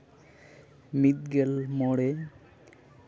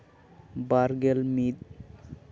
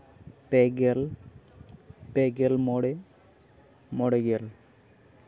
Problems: constant background noise